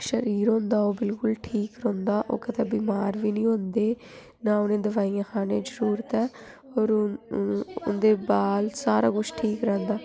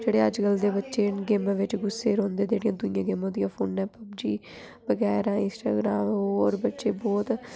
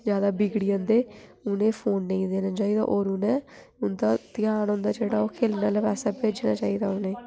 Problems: background sounds at intervals